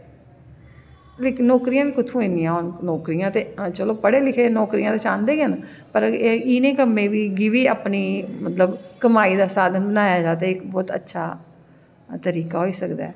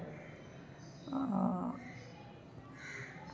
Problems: none marked